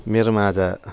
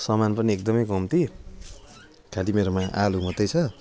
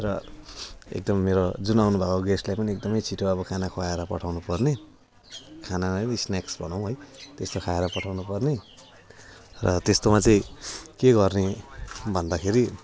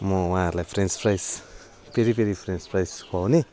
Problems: constant background noise